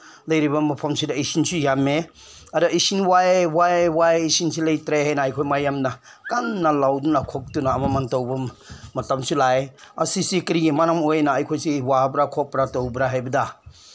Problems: none marked